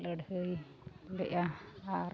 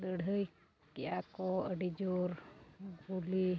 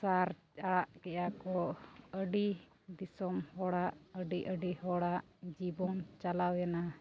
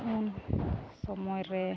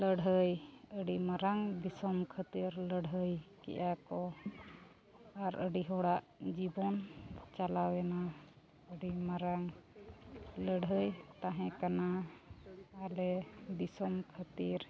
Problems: constant background noise, low volume